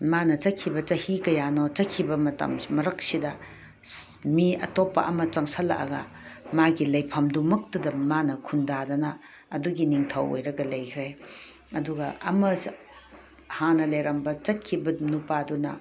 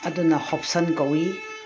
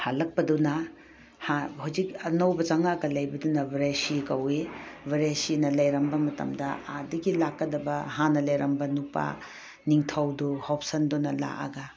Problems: background sounds at intervals